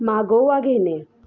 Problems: background sounds at intervals, background conversations at intervals